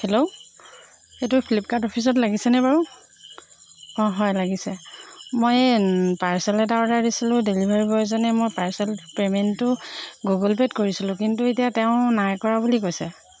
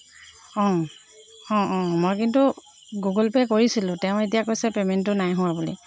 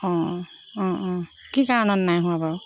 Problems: constant background noise